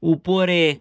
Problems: none marked